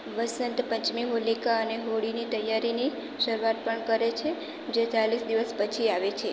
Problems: constant background noise